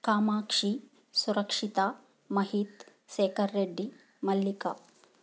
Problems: background sounds at intervals